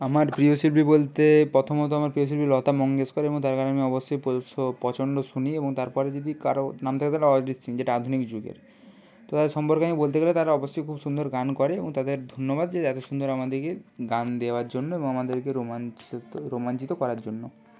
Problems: constant background noise